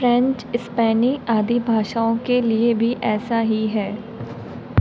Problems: none marked